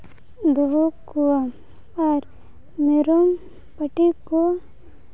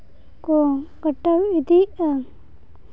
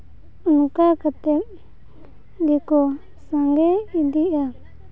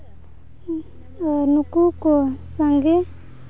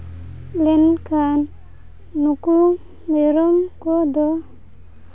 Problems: background sounds at intervals, low volume